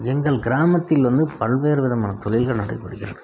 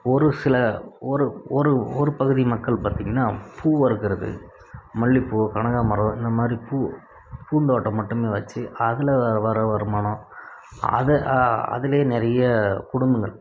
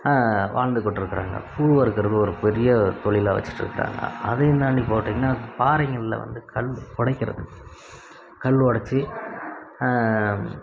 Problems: constant background noise